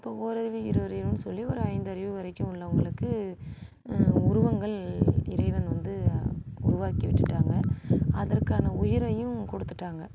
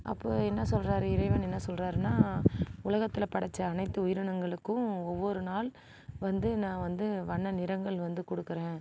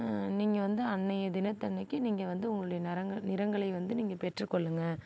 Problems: none marked